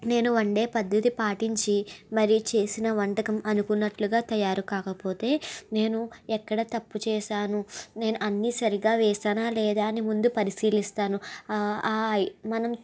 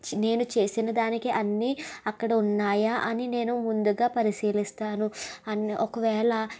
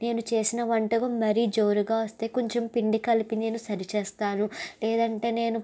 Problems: none marked